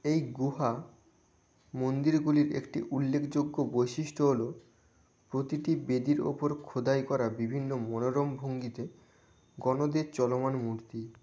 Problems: none marked